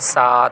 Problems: constant background noise